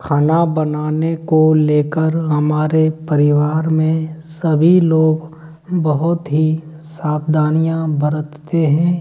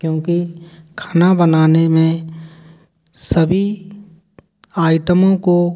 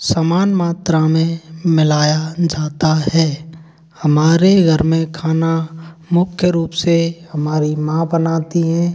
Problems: none marked